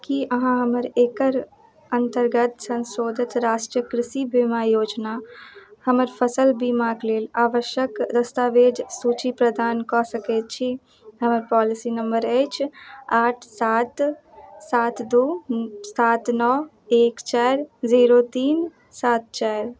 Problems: none marked